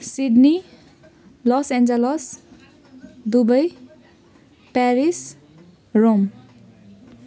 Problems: none marked